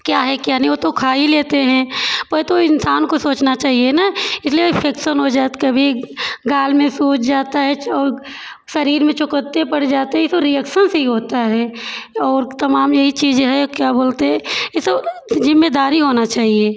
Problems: constant background noise